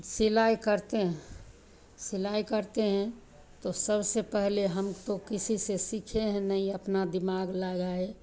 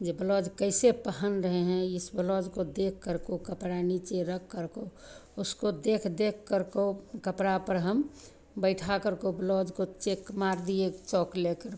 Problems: none marked